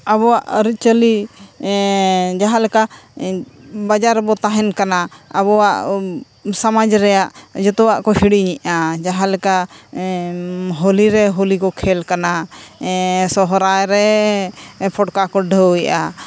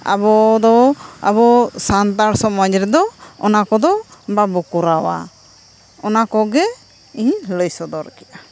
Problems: none marked